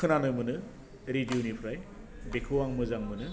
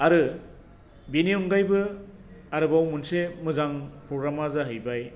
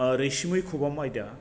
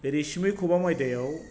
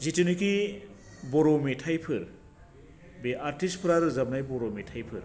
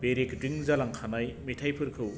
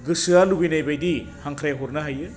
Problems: none marked